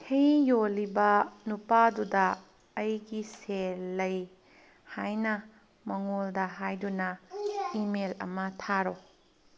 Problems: background conversations at intervals